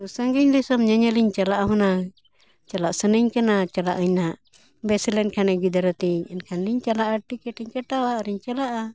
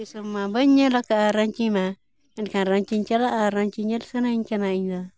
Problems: background sounds at intervals